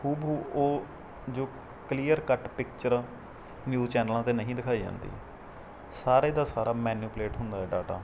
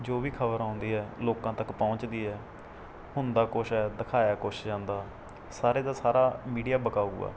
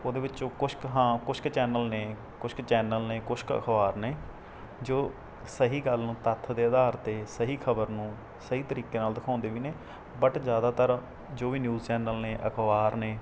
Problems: background sounds at intervals